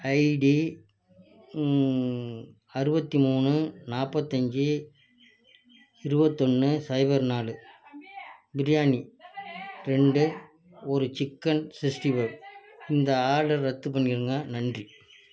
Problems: background conversations at intervals, low volume